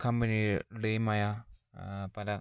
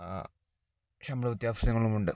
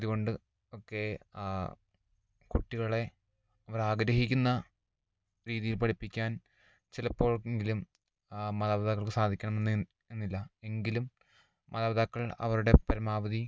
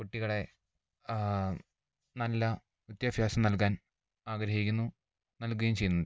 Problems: low volume